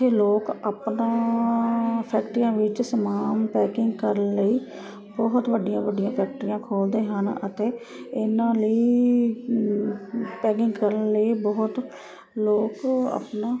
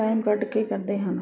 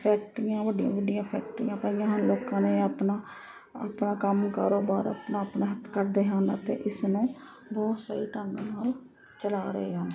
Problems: constant background noise